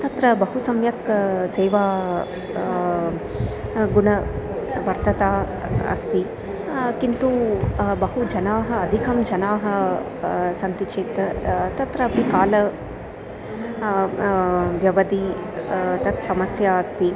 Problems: continuous background conversations